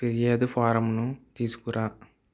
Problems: none marked